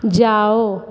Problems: constant background noise, echo